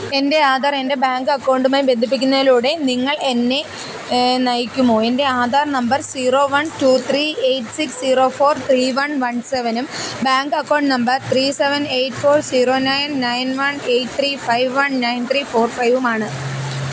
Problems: none marked